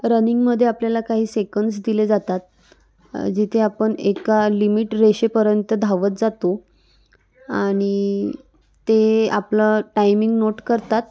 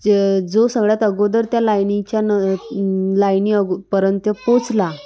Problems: constant background noise, background conversations at intervals